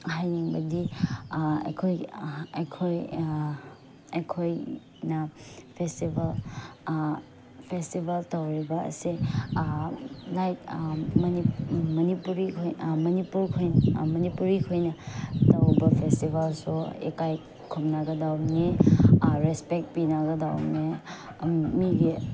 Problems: background sounds at intervals